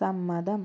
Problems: low volume